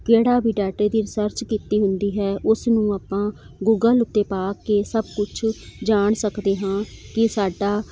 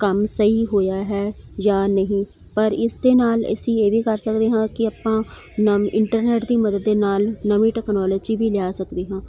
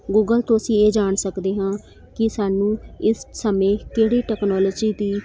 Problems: none marked